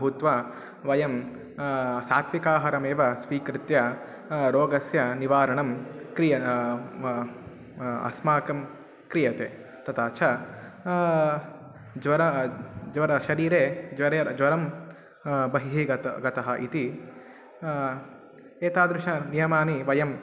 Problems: constant background noise, continuous background conversations